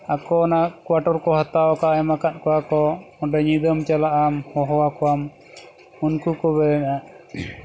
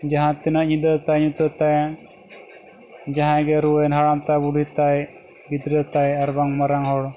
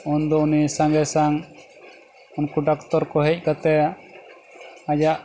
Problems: none marked